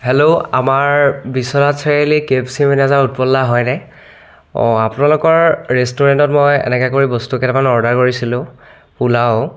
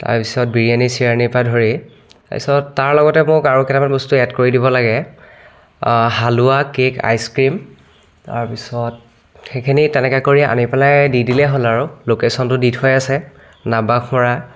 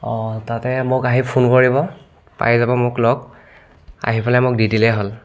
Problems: none marked